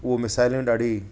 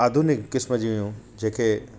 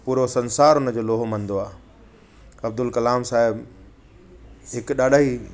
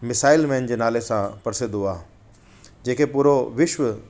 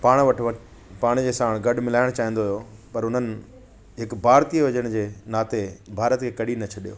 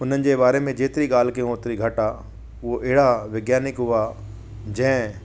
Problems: constant background noise